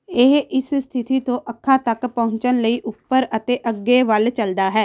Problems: background sounds at intervals